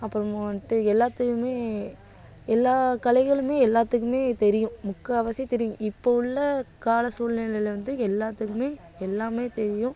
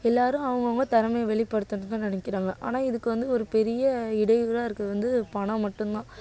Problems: none marked